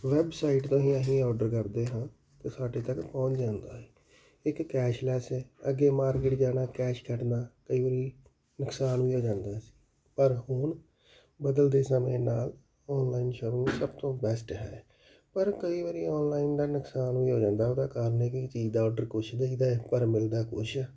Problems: none marked